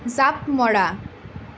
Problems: none marked